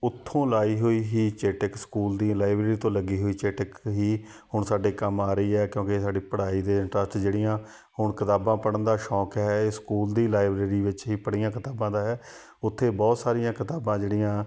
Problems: background sounds at intervals, background conversations at intervals